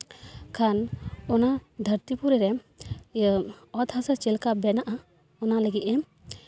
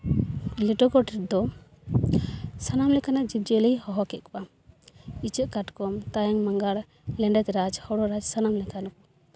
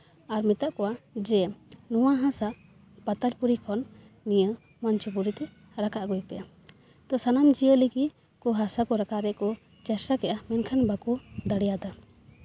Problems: background sounds at intervals